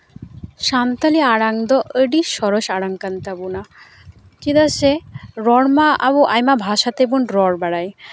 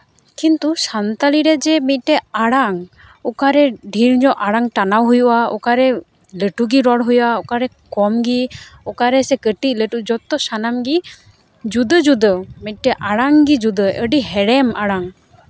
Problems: none marked